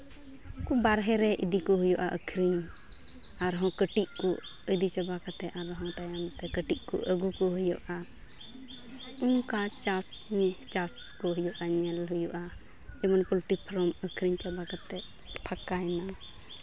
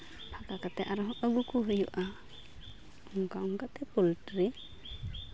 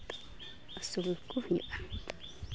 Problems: background sounds at intervals, background conversations at intervals